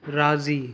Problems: none marked